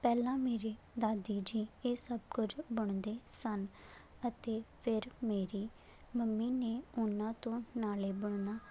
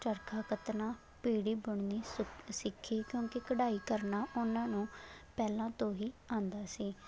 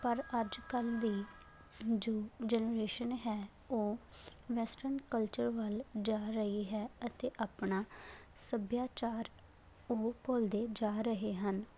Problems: constant background noise